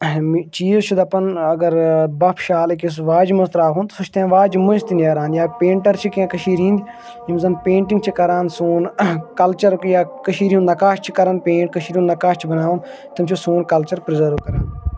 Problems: background conversations at intervals